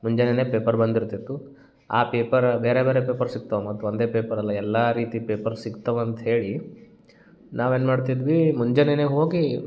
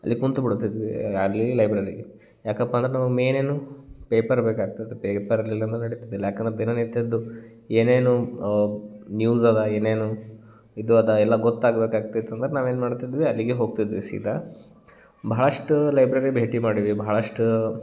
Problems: none marked